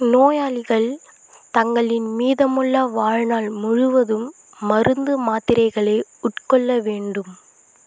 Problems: constant background noise